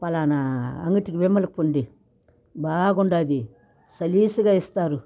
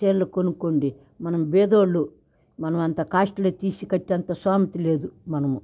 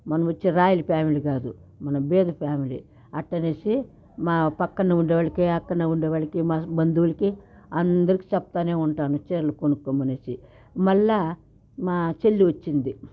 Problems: none marked